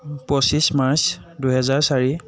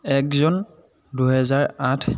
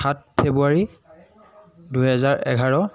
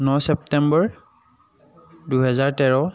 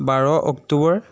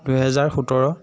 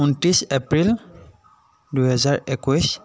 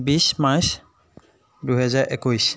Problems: none marked